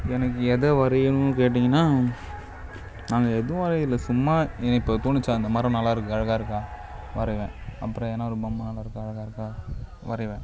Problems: constant background noise